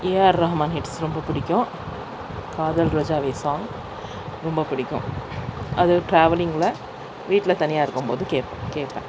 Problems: constant background noise